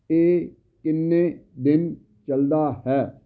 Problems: none marked